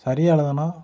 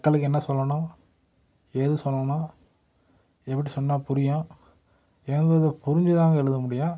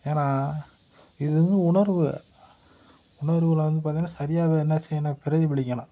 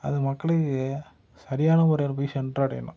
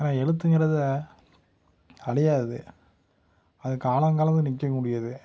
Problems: none marked